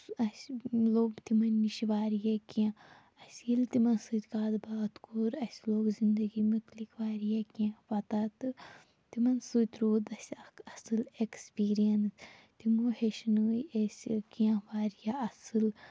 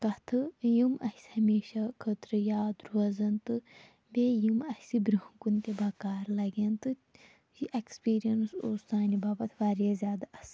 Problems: background sounds at intervals, low volume